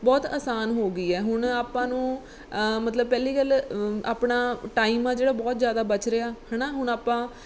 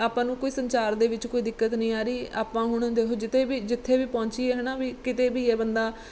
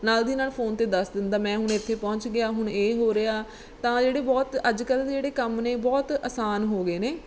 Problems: background sounds at intervals